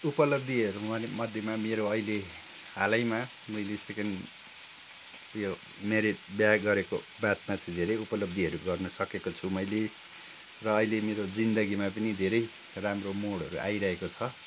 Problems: constant background noise